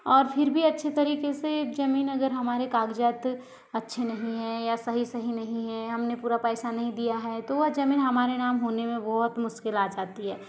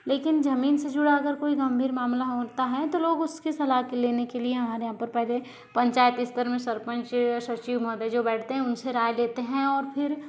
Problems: continuous background conversations